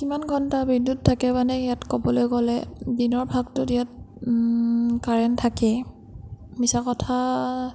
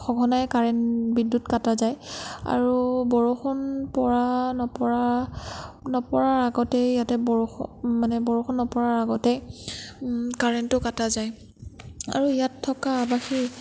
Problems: none marked